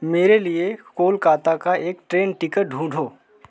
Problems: background sounds at intervals